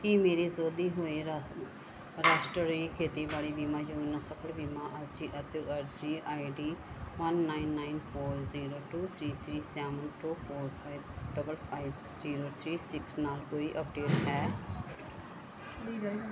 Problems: background sounds at intervals, background conversations at intervals